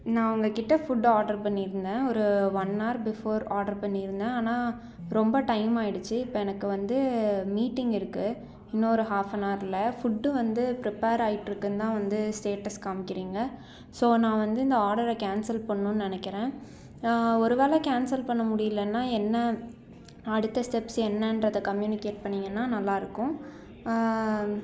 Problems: background conversations at intervals